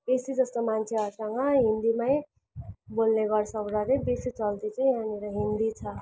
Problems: background sounds at intervals